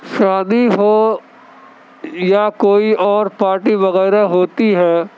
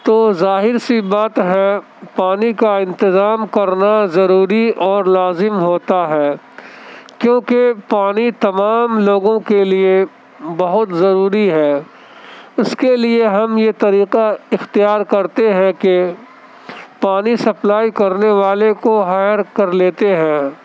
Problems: constant background noise